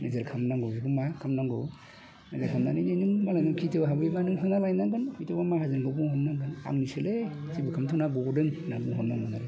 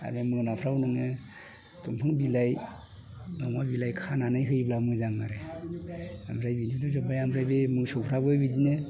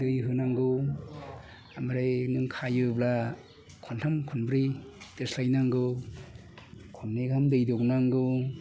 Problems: constant background noise